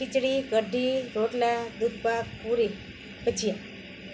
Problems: constant background noise